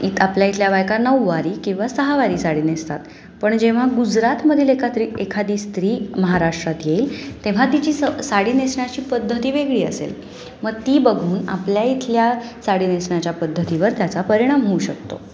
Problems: constant background noise, background conversations at intervals